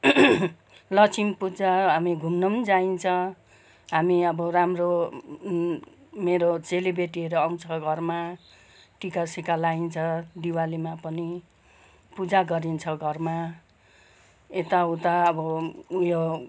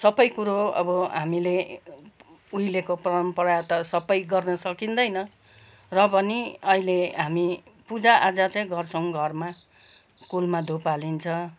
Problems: background sounds at intervals, background conversations at intervals